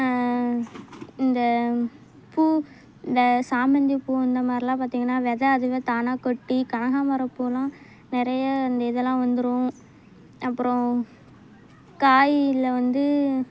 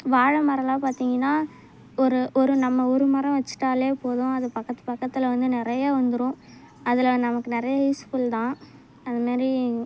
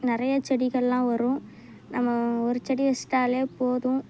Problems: none marked